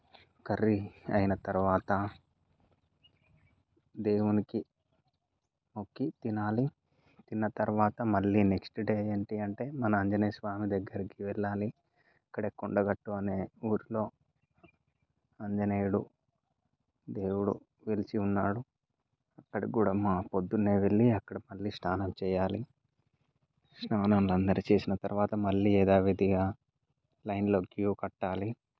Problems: background sounds at intervals